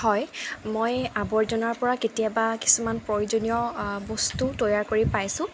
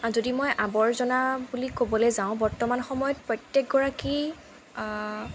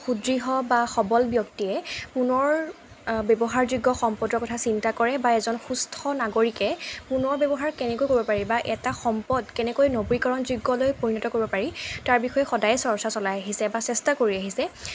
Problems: constant background noise